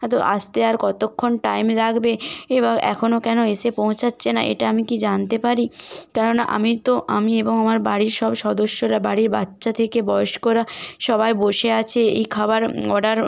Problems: background sounds at intervals